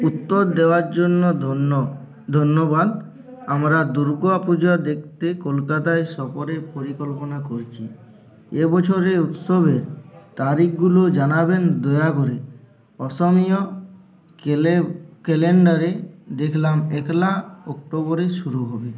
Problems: continuous background conversations